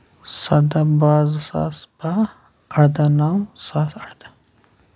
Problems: background sounds at intervals